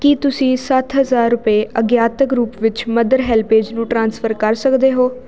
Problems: none marked